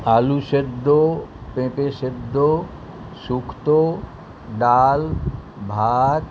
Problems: background sounds at intervals